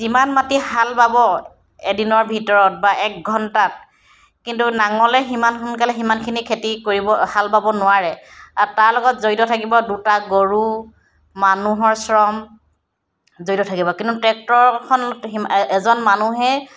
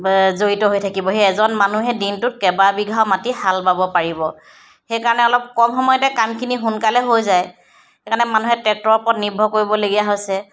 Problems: none marked